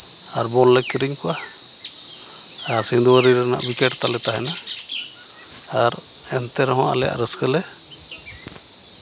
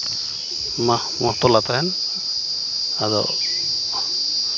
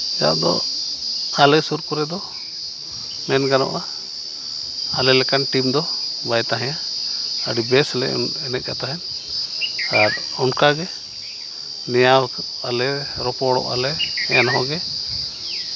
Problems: none marked